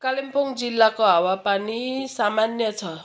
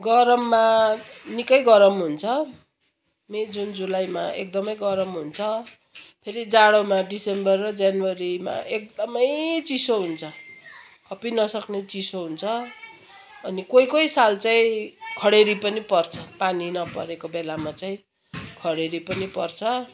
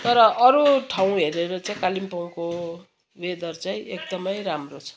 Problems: constant background noise, continuous background conversations